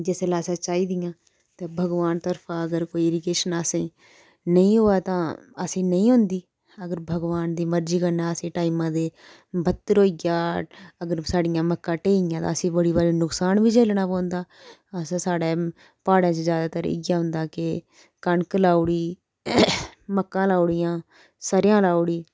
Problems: none marked